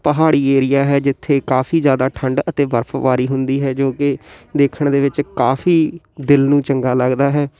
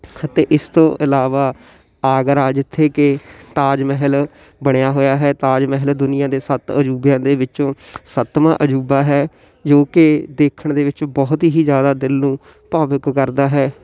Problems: constant background noise